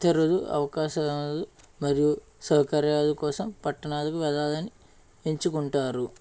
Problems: none marked